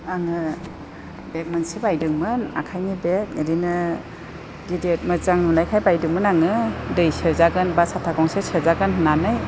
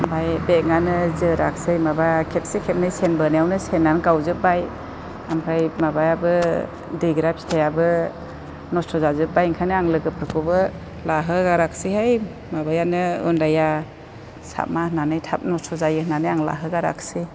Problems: constant background noise